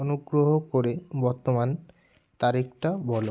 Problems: none marked